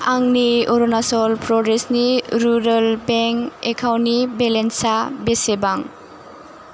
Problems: constant background noise